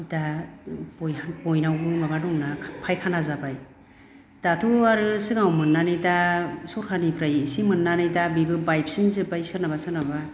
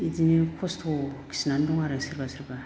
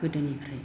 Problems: low volume